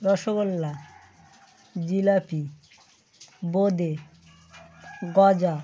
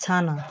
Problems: constant background noise